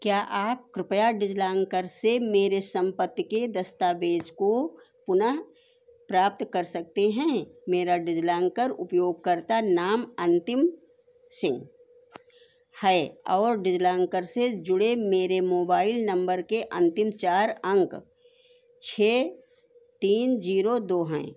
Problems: constant background noise